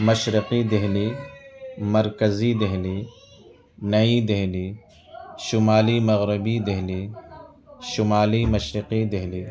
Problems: constant background noise, continuous background conversations